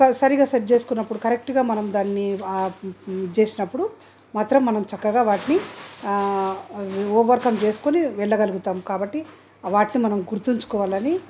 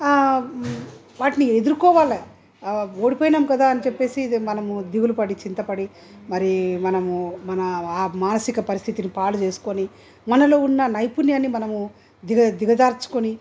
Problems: none marked